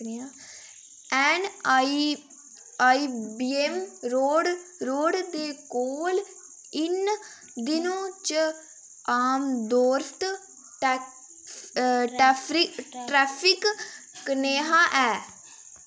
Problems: background sounds at intervals, background conversations at intervals